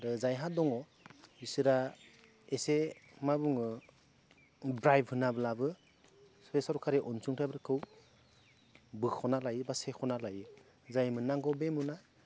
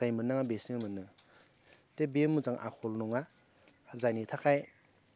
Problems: low volume